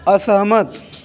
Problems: background conversations at intervals